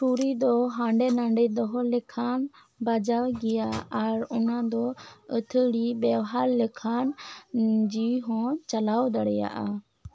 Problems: none marked